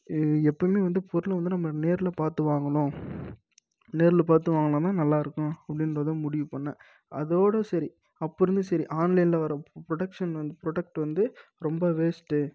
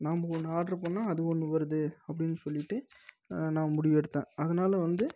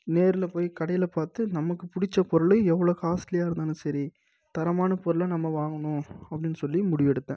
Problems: low volume